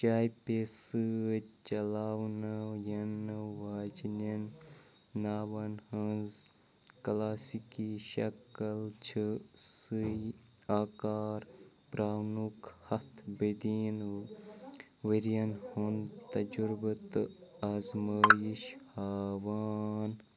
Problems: none marked